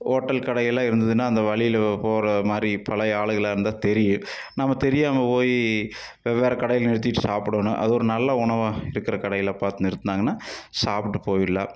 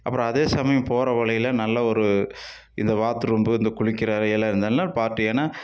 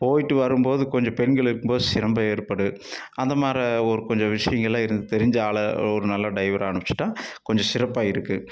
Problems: none marked